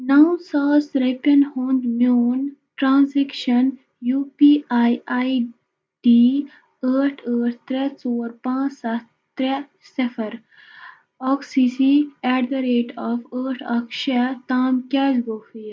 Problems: none marked